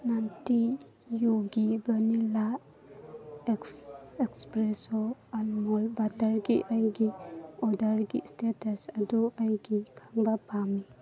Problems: background conversations at intervals